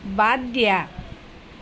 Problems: constant background noise